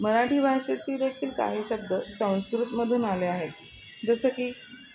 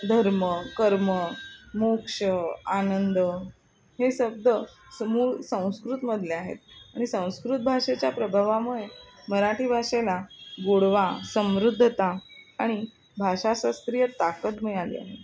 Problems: constant background noise, continuous background conversations